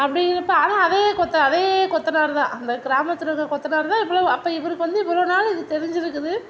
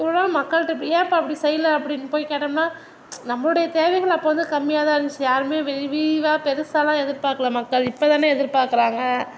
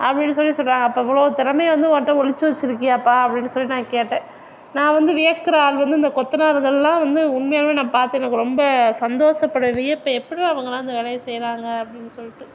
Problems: none marked